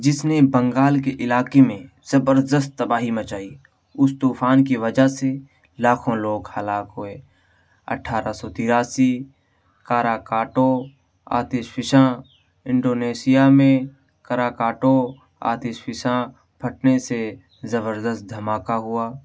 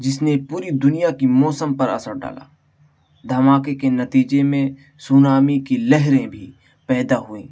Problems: none marked